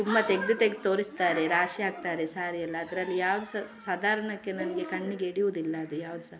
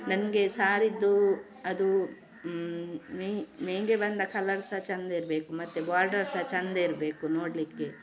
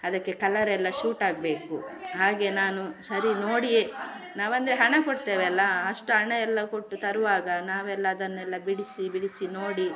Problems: none marked